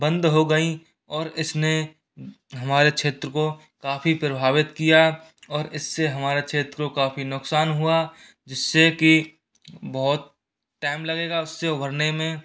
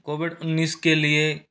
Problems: constant background noise